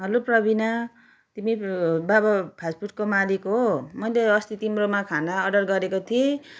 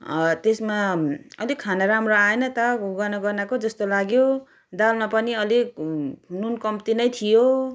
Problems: none marked